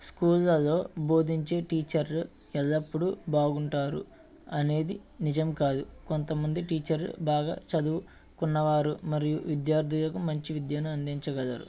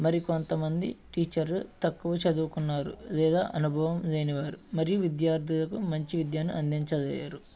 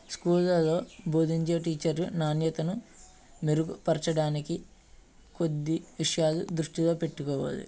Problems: background sounds at intervals